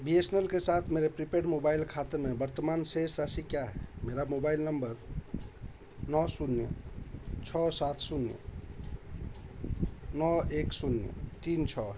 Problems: background sounds at intervals